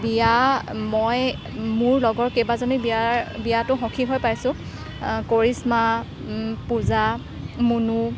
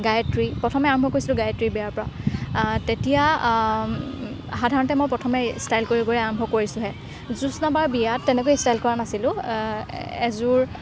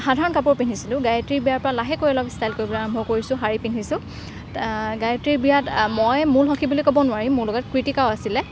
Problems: constant background noise